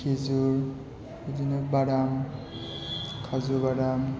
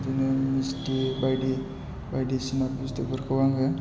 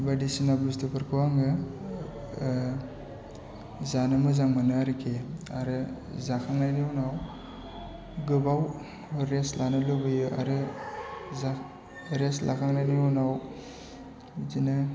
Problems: background sounds at intervals